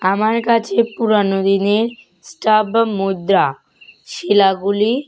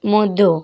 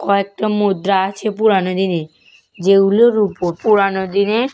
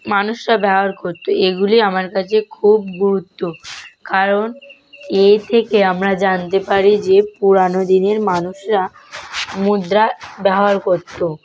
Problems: constant background noise